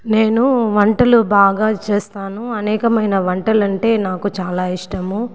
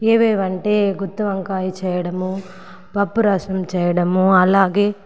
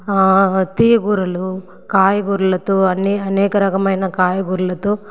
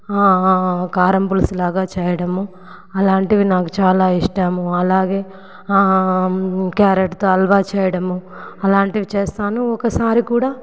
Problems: background sounds at intervals